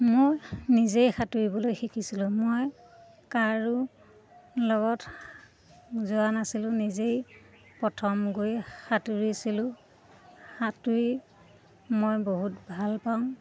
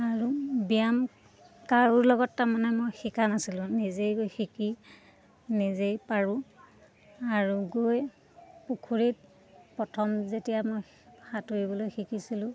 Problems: constant background noise